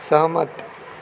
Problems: constant background noise